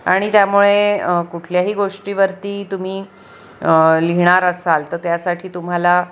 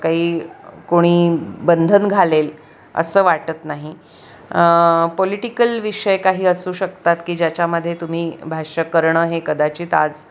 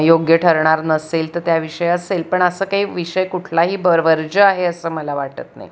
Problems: constant background noise, continuous background conversations